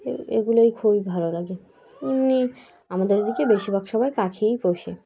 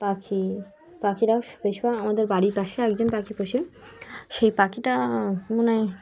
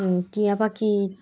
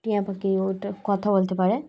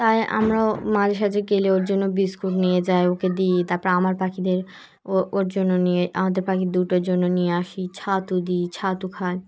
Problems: background sounds at intervals